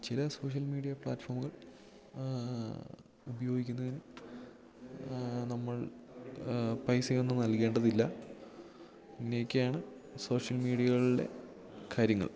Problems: low volume